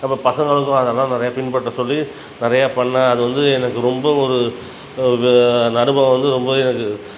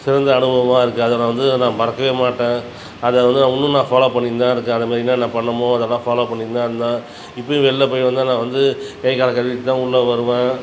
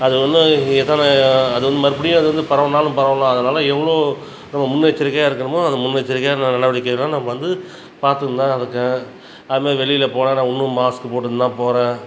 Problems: background sounds at intervals